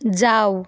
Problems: constant background noise